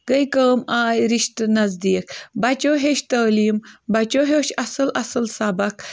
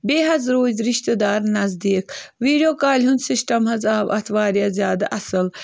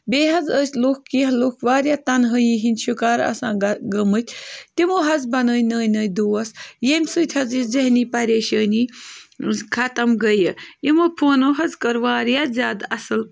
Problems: none marked